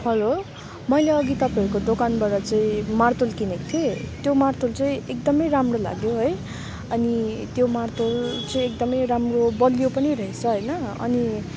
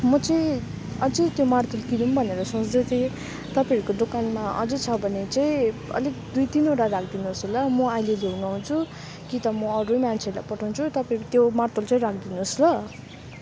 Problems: none marked